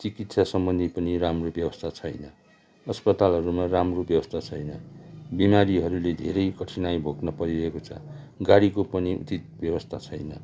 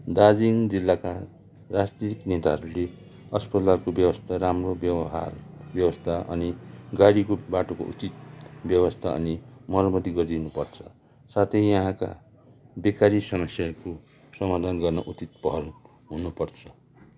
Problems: background conversations at intervals